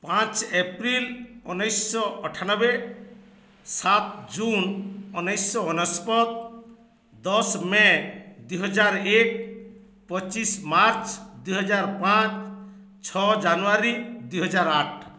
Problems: none marked